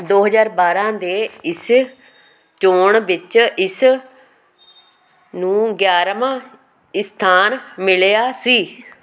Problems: constant background noise